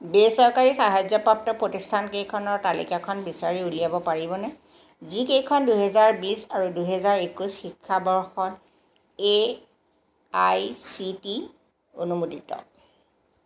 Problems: constant background noise